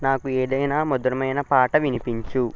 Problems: constant background noise, continuous background conversations